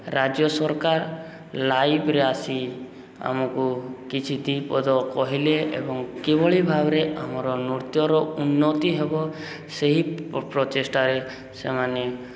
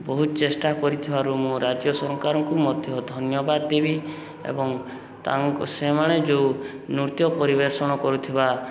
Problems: none marked